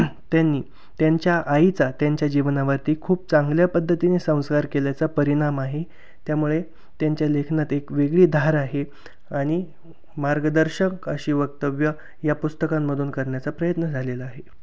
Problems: none marked